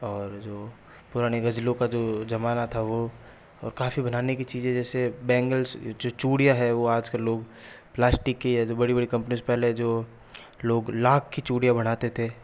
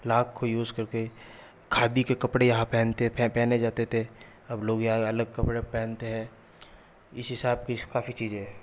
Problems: none marked